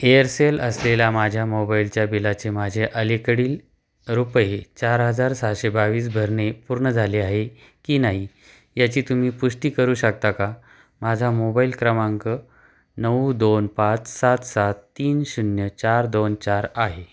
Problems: background sounds at intervals